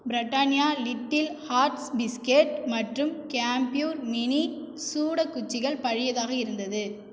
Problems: echo